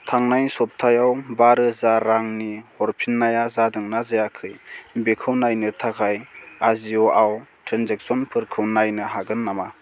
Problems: constant background noise